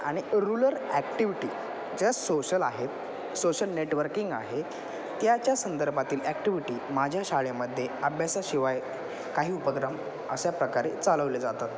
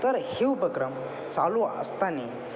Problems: constant background noise, continuous background conversations